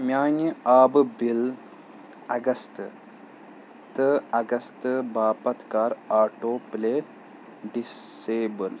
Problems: none marked